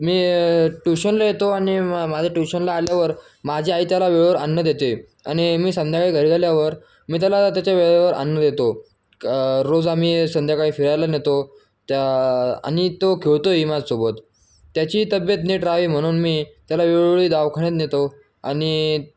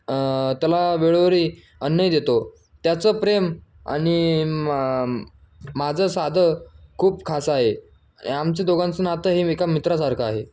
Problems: none marked